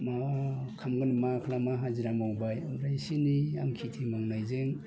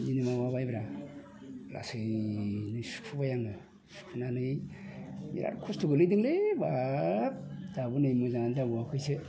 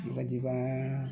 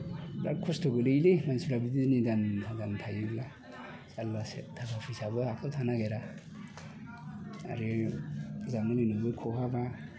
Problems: constant background noise